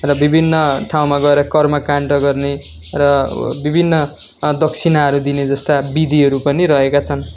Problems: constant background noise